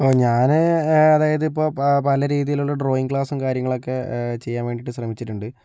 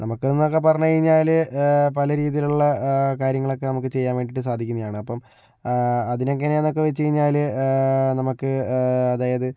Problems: low volume